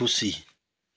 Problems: background sounds at intervals